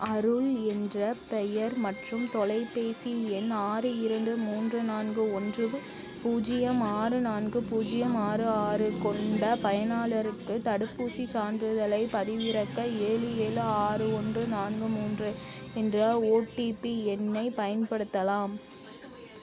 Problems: continuous background conversations